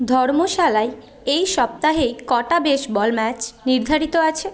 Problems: constant background noise, continuous background conversations